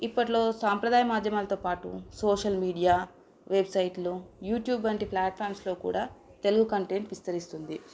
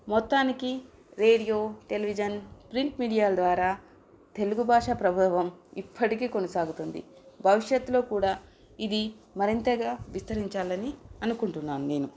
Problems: none marked